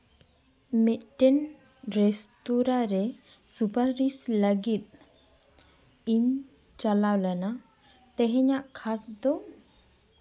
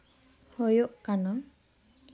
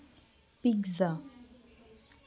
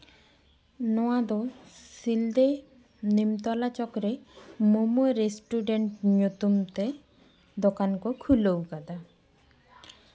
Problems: constant background noise, background conversations at intervals